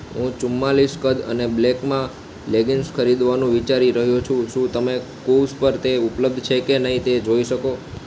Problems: constant background noise